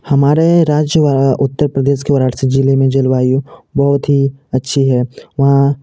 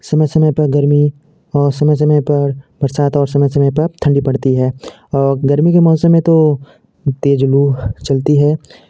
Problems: none marked